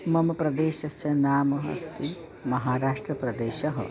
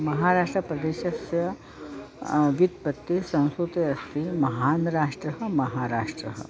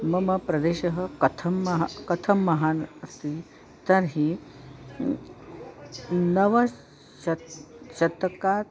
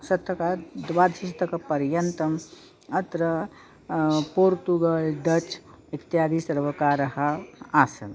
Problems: none marked